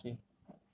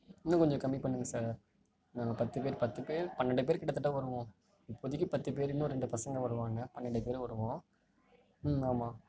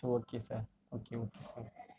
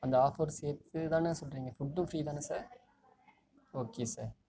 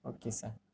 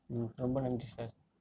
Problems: low volume